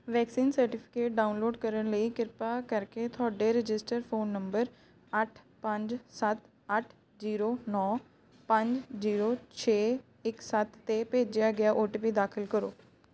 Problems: none marked